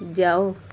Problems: constant background noise, low volume